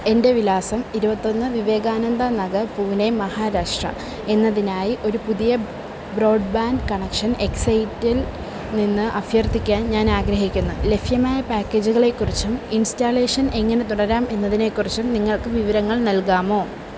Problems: constant background noise